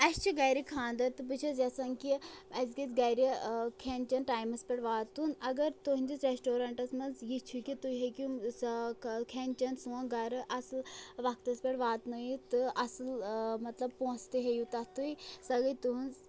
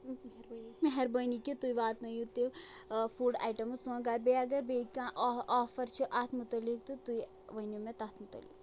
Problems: constant background noise, background conversations at intervals